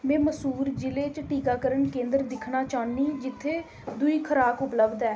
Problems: none marked